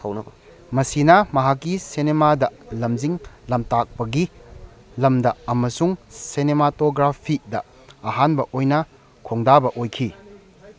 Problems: background conversations at intervals